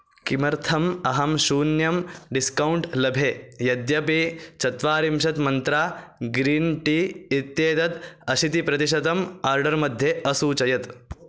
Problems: constant background noise